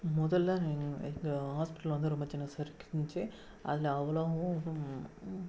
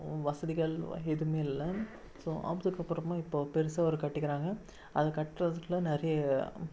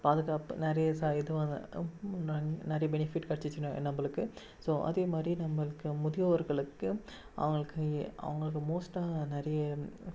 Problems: background sounds at intervals, low volume